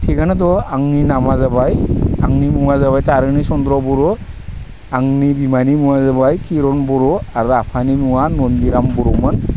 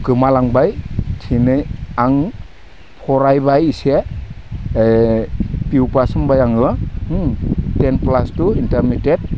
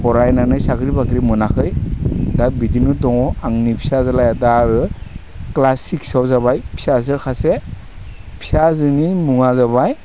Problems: none marked